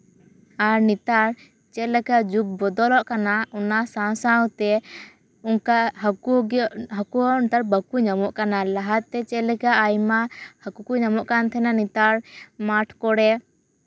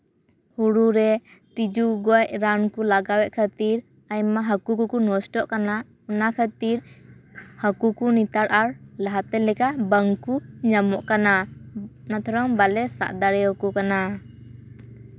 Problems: constant background noise